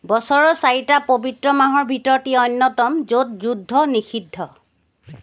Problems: background sounds at intervals